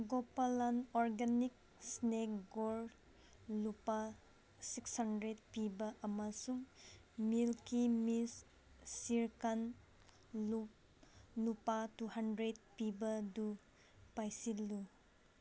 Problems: background sounds at intervals